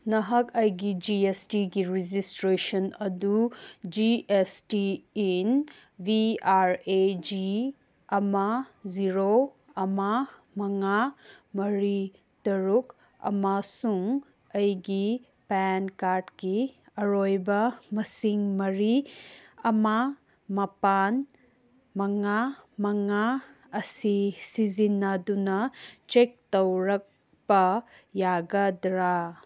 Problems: none marked